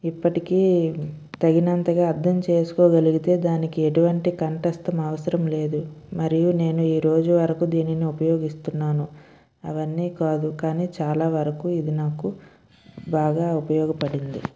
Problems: none marked